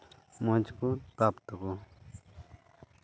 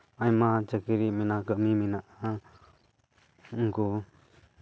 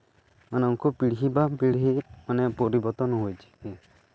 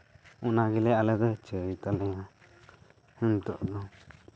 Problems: none marked